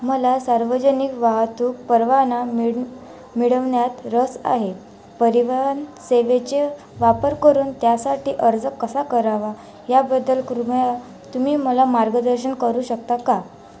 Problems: constant background noise